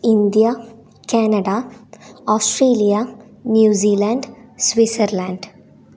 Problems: none marked